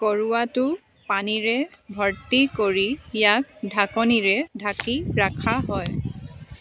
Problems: background sounds at intervals, continuous background conversations